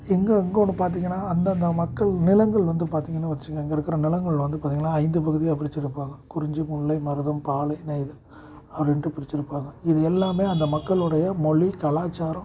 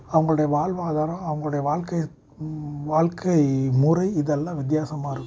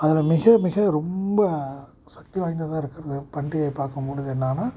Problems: constant background noise